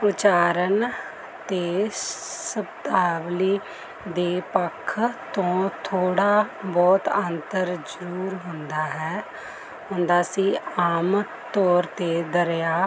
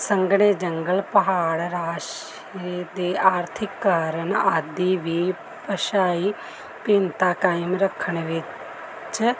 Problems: none marked